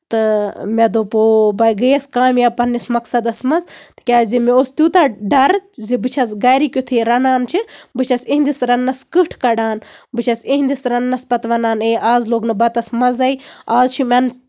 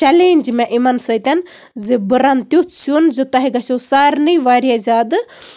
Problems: background sounds at intervals